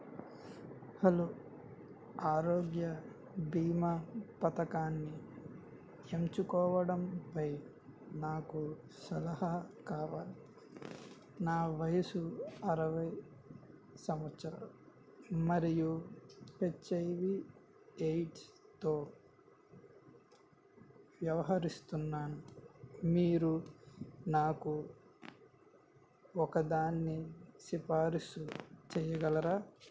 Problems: low volume